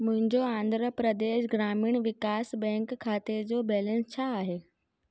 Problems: none marked